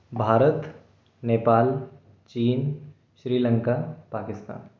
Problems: none marked